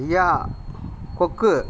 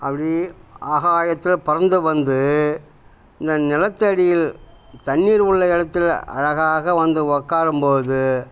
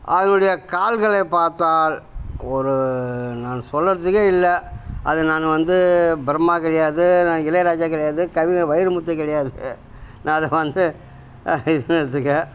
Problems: none marked